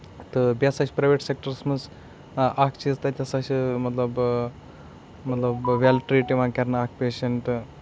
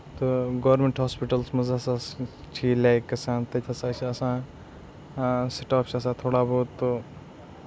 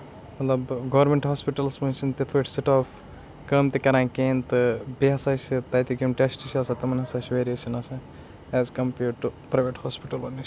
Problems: constant background noise